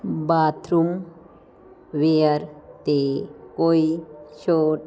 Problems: none marked